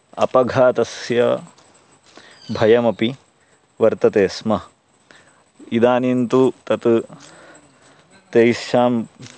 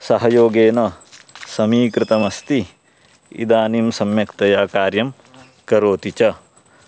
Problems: constant background noise